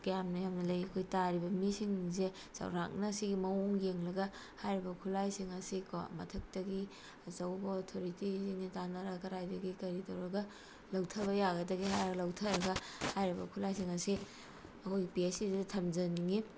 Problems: constant background noise